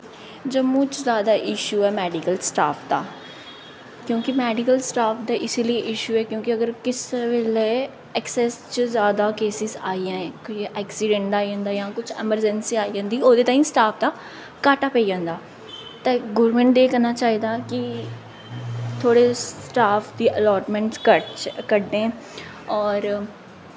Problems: echo